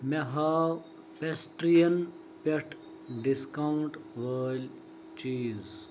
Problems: none marked